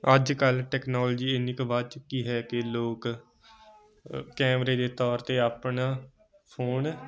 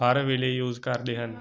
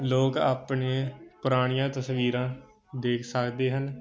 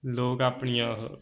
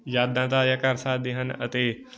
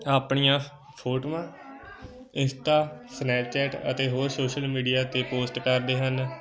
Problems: constant background noise, continuous background conversations